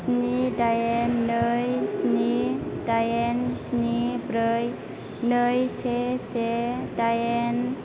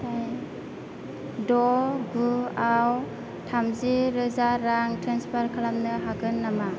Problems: constant background noise, background conversations at intervals